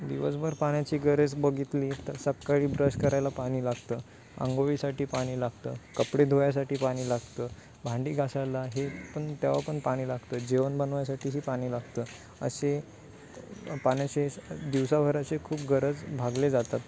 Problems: background sounds at intervals